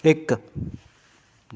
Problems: background conversations at intervals